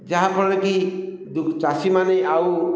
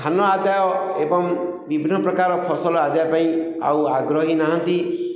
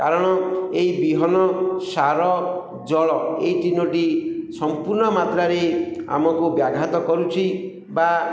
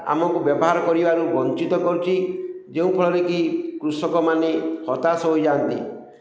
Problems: none marked